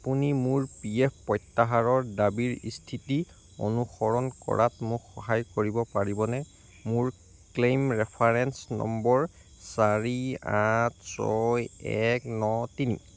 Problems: none marked